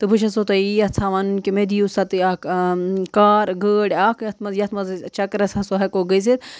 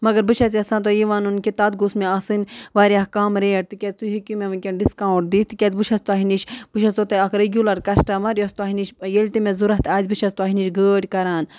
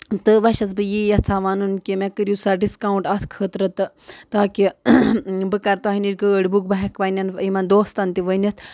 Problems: constant background noise